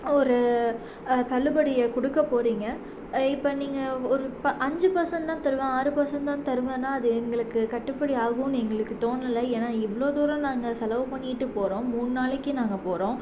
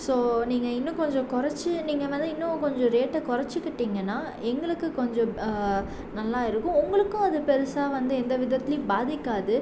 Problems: none marked